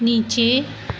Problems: constant background noise